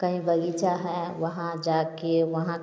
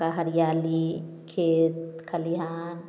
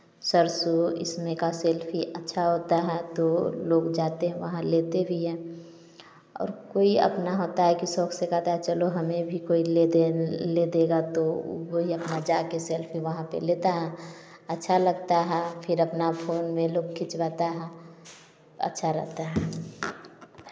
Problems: none marked